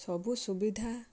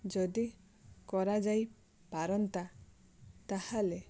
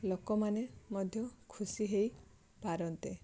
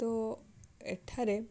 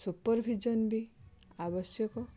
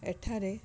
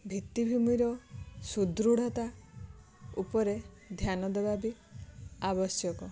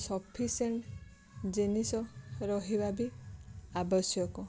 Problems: background sounds at intervals